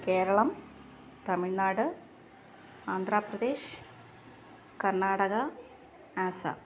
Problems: none marked